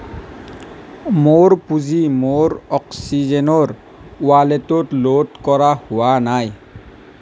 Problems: none marked